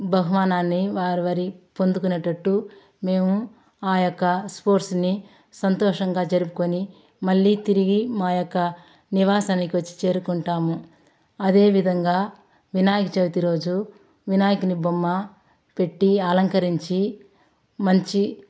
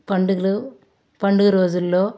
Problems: constant background noise, background conversations at intervals